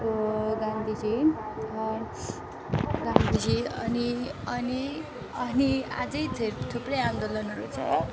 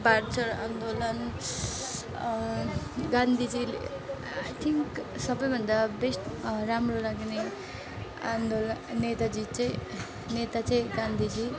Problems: background sounds at intervals